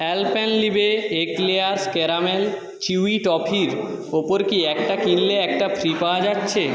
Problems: background conversations at intervals, echo